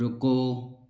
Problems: none marked